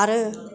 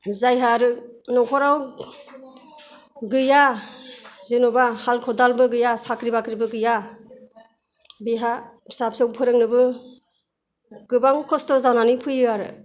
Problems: none marked